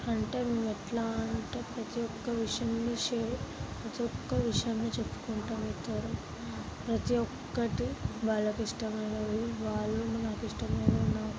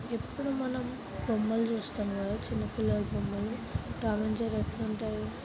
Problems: constant background noise, background conversations at intervals, low volume